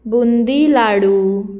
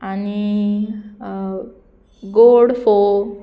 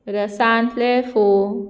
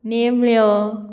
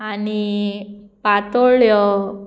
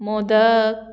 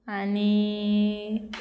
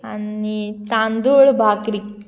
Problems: background sounds at intervals